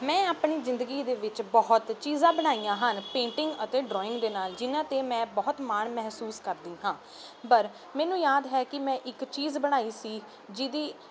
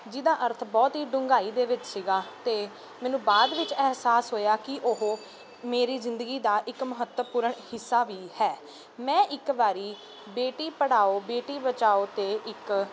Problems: none marked